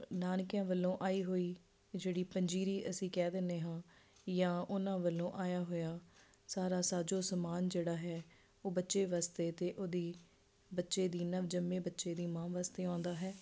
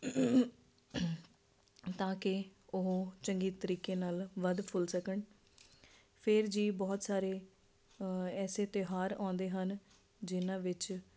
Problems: constant background noise